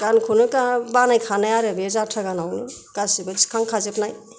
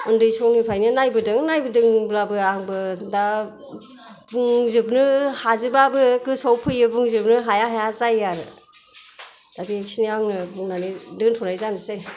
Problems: background sounds at intervals